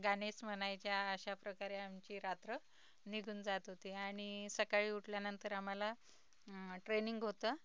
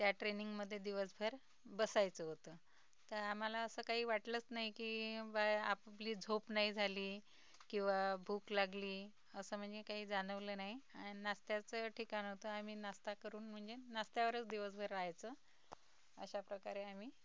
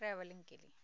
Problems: none marked